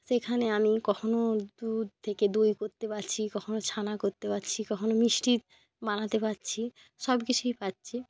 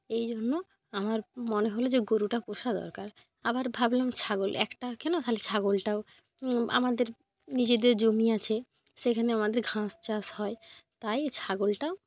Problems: none marked